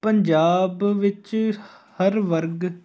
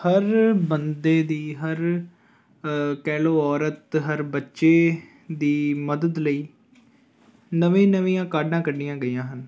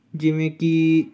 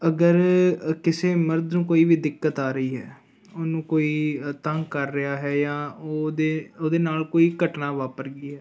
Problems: continuous background conversations